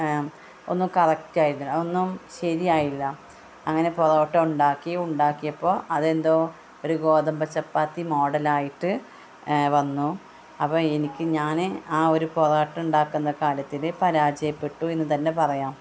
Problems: constant background noise, background conversations at intervals